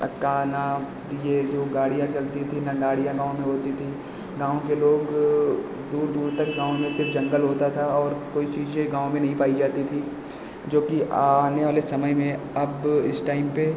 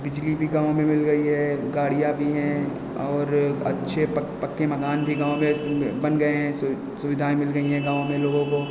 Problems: constant background noise, echo